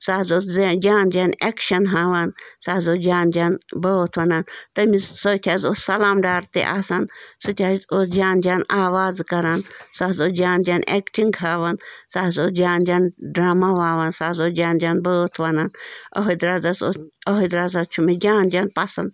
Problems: constant background noise